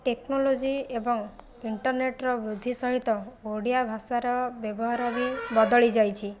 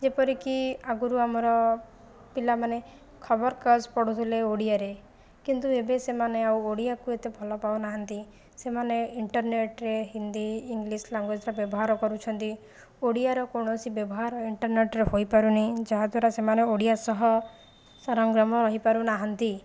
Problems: constant background noise